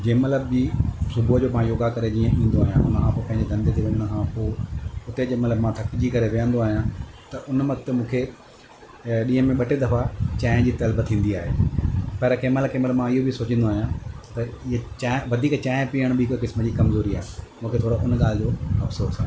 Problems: constant background noise